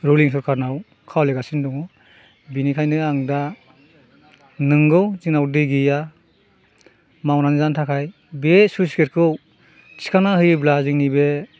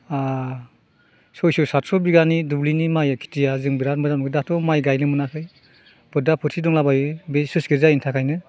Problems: constant background noise